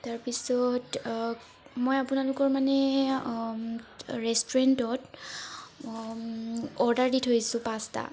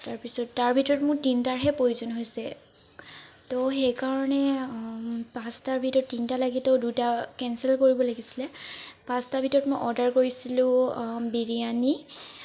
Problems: none marked